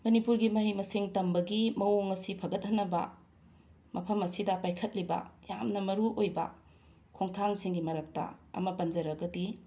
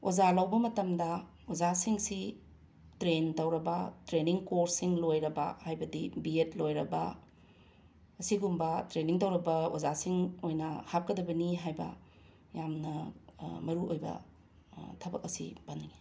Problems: none marked